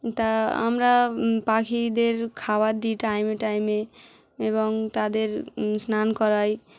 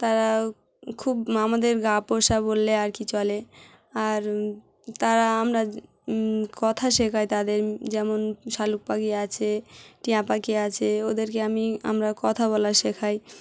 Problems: none marked